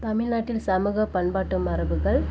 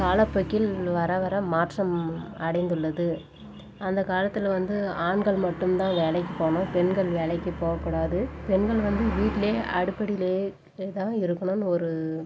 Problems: background sounds at intervals